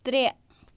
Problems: constant background noise